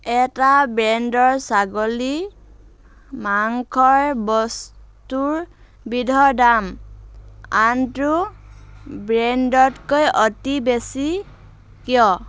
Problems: constant background noise